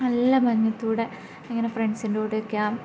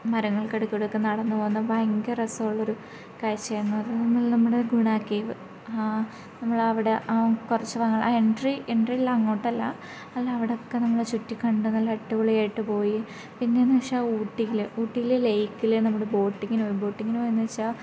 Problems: low volume